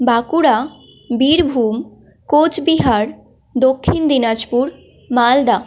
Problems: constant background noise